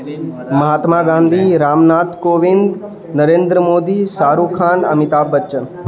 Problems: constant background noise